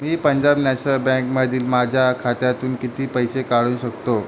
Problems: constant background noise